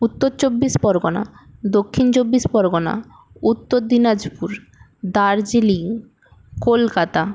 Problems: background sounds at intervals